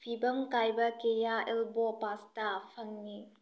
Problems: low volume